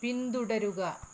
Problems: low volume